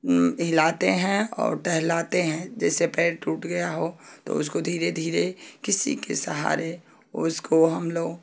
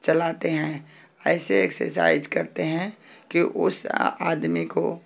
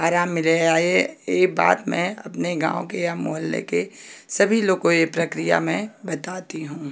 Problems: none marked